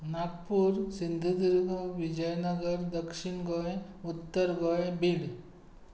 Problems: constant background noise